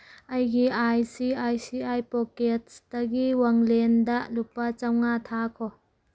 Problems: none marked